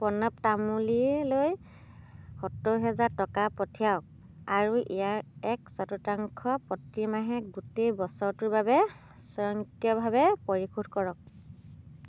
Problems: constant background noise